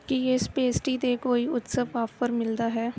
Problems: none marked